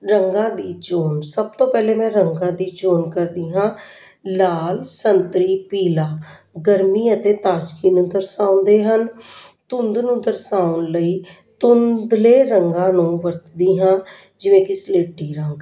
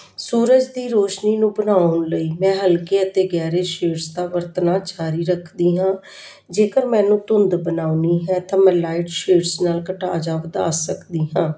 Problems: background conversations at intervals